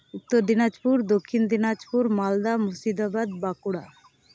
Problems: none marked